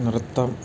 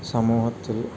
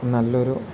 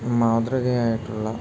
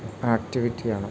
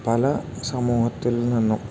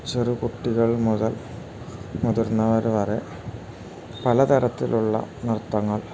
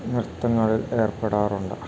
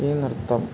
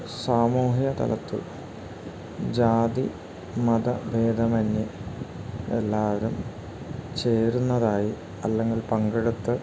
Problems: constant background noise